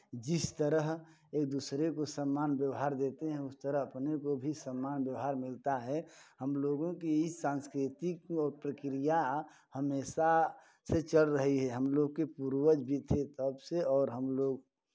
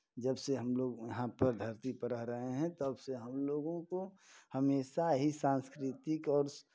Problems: background sounds at intervals